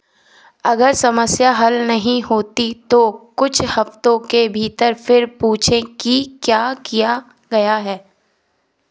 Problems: background sounds at intervals, background conversations at intervals